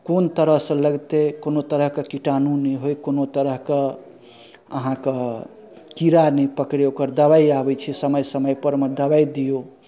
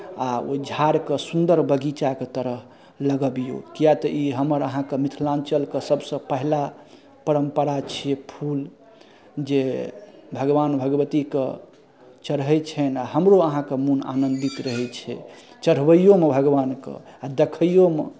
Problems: none marked